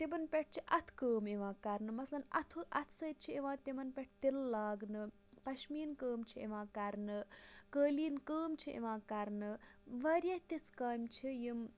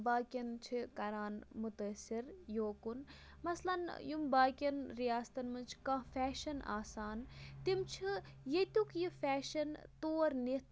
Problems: background sounds at intervals, low volume